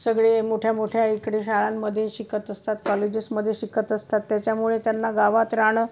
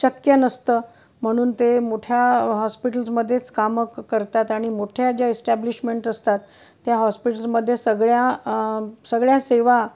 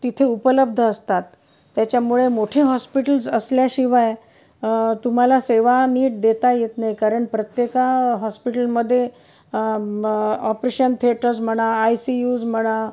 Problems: none marked